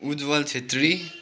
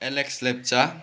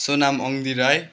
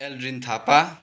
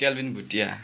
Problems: constant background noise